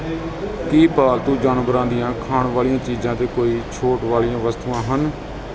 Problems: none marked